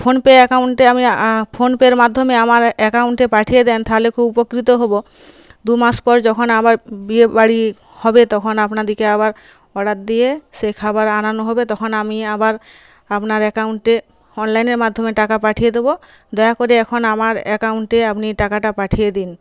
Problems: none marked